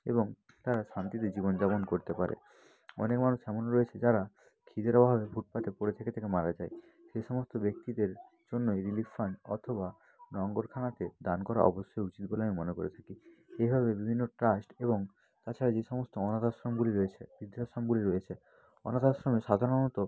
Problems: continuous background conversations